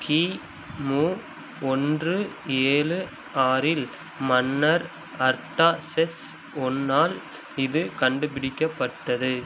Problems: constant background noise